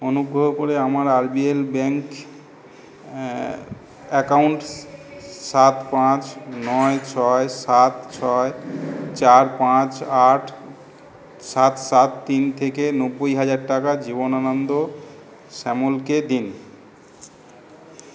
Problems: background sounds at intervals